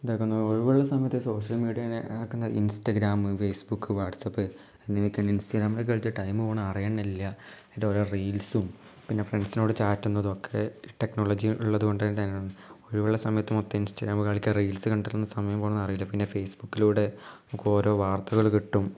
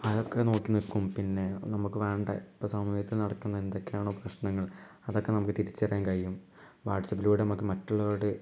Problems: low volume